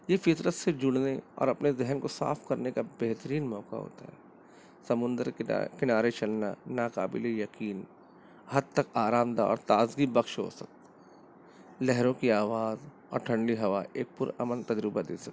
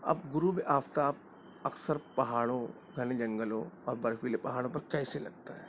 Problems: constant background noise